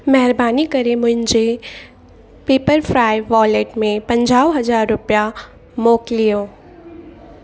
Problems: constant background noise, echo